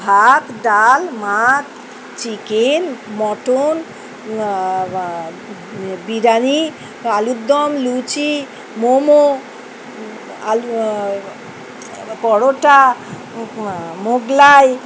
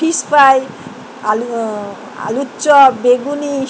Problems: none marked